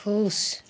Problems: constant background noise